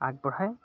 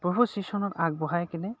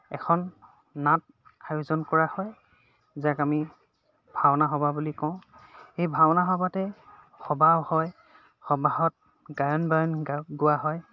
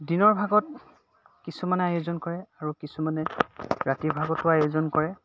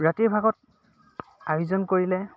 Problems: constant background noise, background conversations at intervals